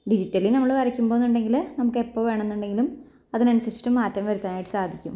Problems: low volume